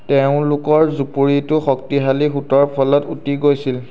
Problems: none marked